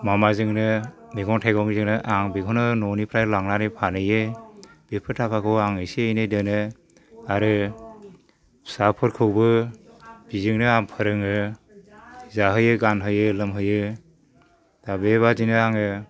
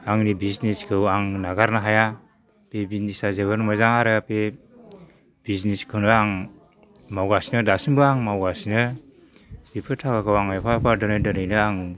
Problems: low volume